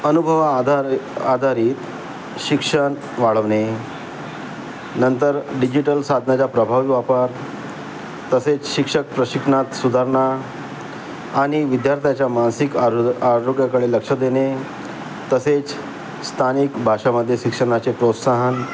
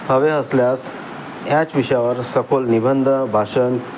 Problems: constant background noise, continuous background conversations